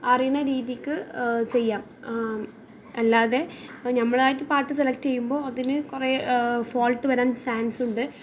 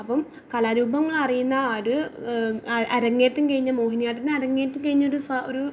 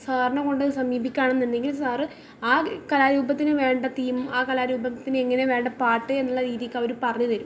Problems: none marked